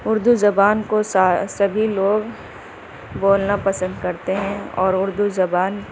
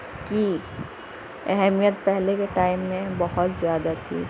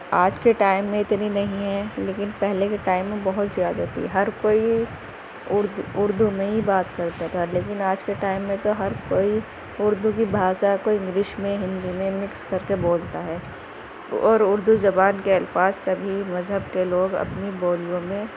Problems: constant background noise